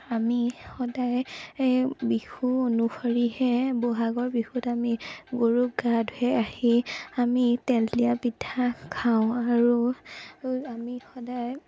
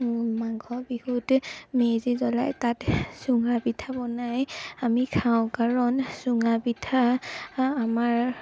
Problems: background sounds at intervals